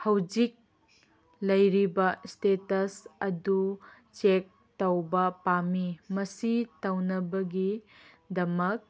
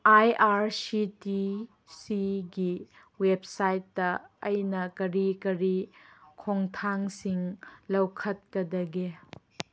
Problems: none marked